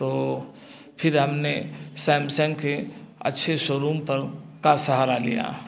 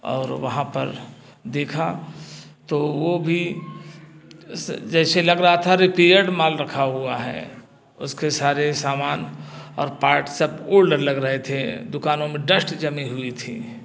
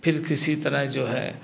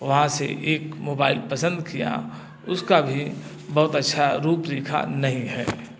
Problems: none marked